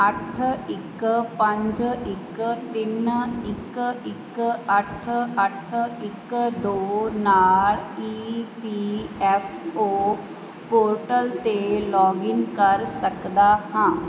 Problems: constant background noise